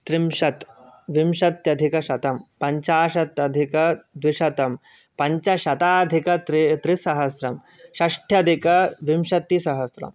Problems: background sounds at intervals